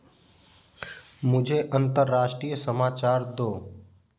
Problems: none marked